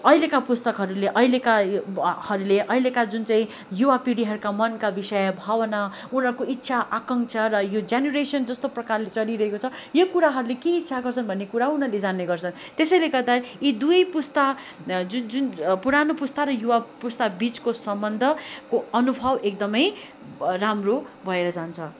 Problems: none marked